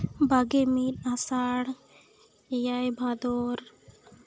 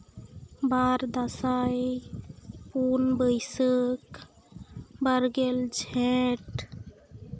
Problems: background sounds at intervals